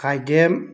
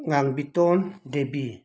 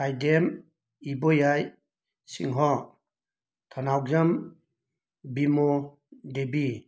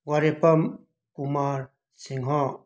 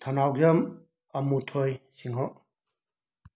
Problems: none marked